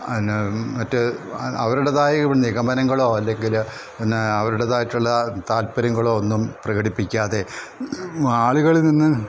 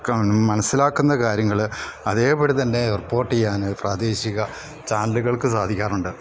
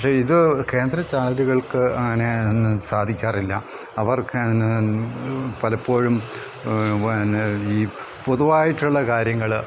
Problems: background sounds at intervals